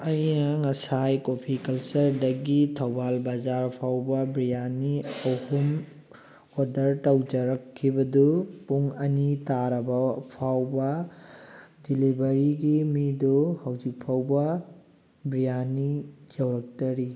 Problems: constant background noise